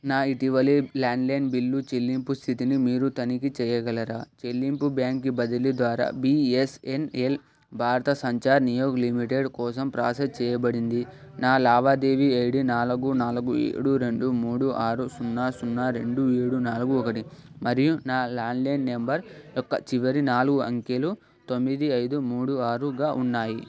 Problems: constant background noise, background conversations at intervals